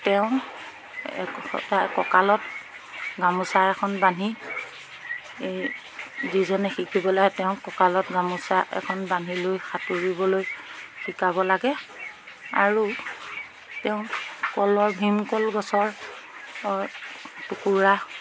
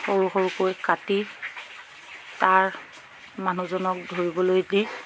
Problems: constant background noise